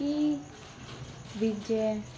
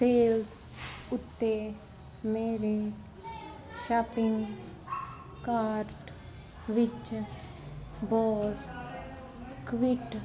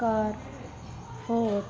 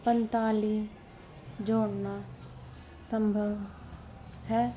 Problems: continuous background conversations